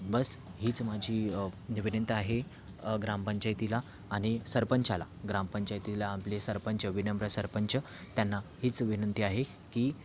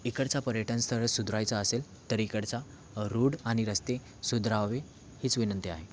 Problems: constant background noise